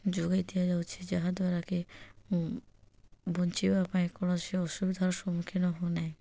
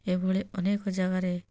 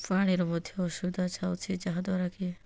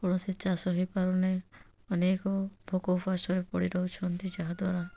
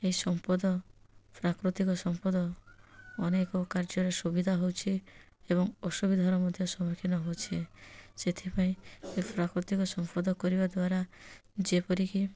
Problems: none marked